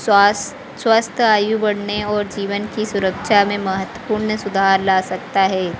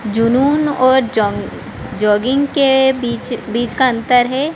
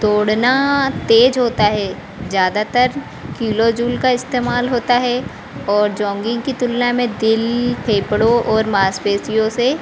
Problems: constant background noise